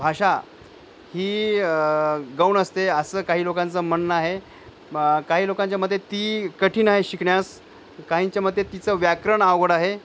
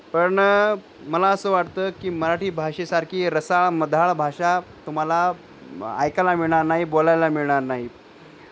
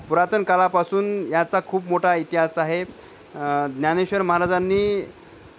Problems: none marked